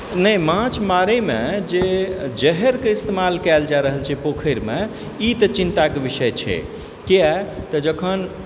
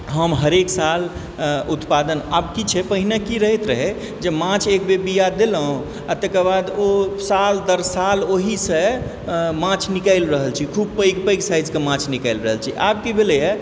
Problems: background sounds at intervals